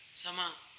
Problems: background sounds at intervals